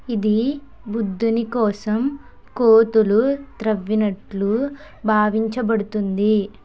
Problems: background conversations at intervals